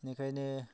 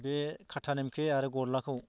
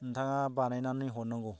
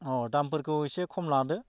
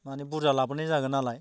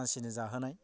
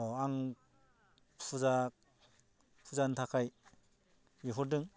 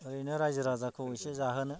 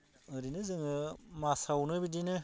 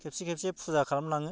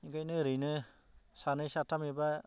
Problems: low volume